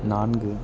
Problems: constant background noise